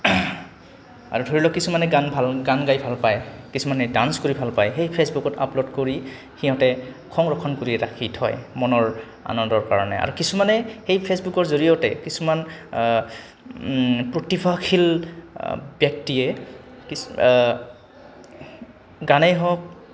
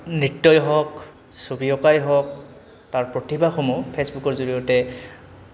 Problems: background sounds at intervals